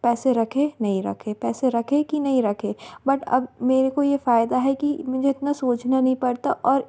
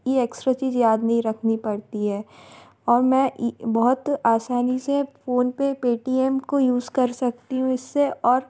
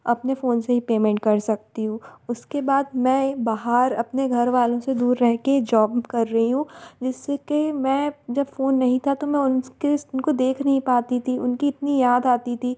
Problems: constant background noise